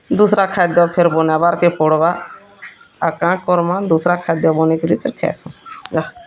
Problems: constant background noise